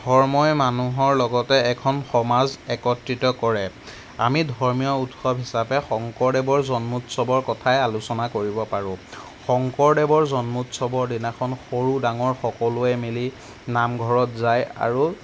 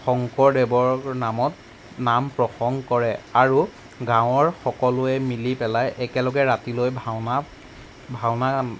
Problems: background sounds at intervals